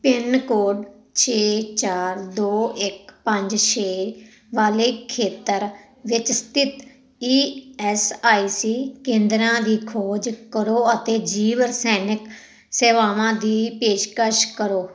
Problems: none marked